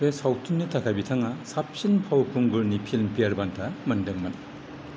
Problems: none marked